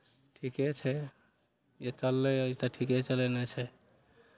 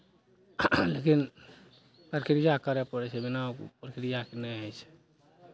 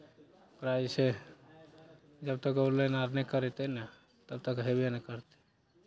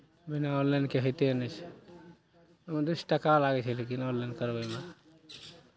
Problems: none marked